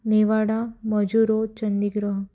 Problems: none marked